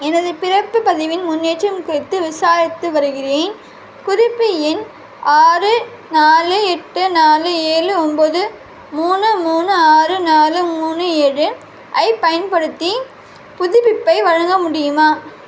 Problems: constant background noise